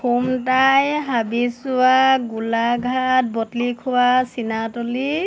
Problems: none marked